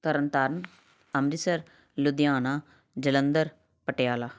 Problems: none marked